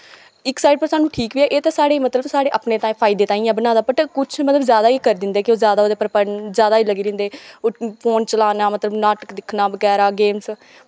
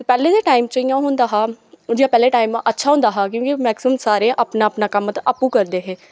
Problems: background sounds at intervals